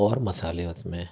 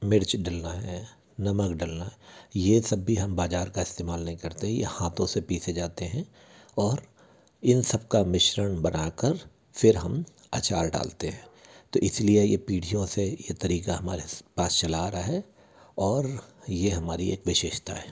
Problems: constant background noise